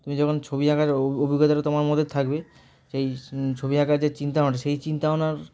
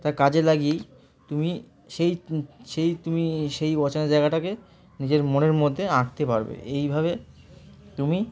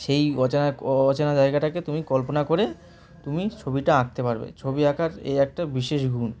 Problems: constant background noise, continuous background conversations